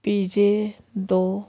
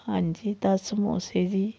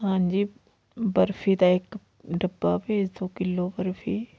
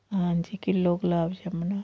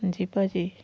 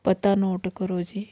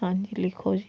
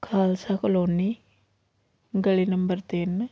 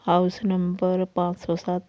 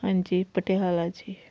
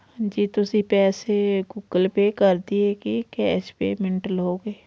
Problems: none marked